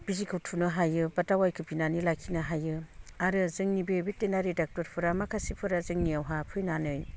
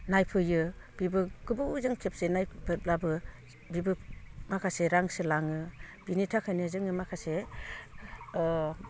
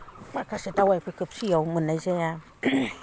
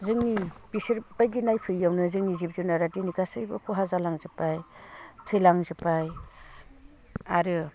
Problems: low volume